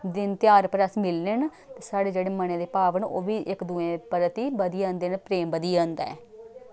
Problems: none marked